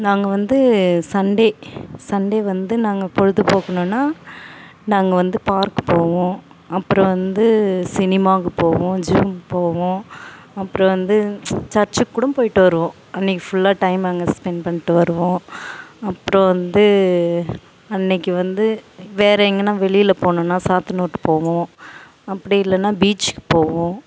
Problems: background sounds at intervals